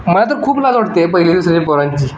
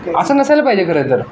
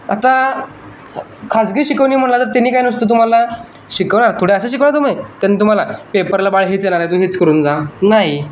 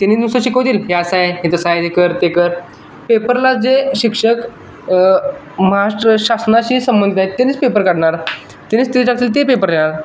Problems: none marked